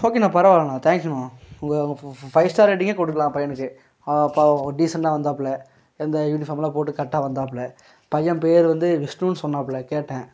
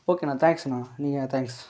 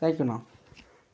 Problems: background sounds at intervals